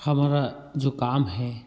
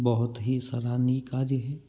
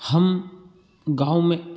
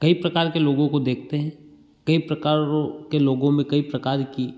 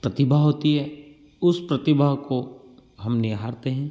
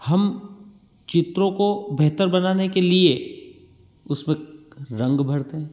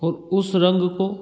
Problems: none marked